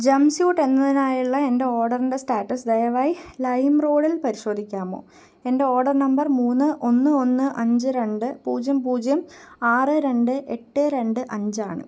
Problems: none marked